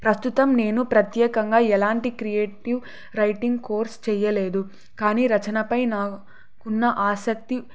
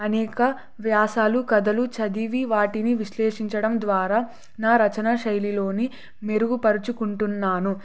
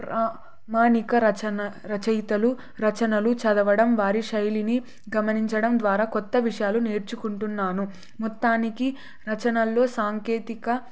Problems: none marked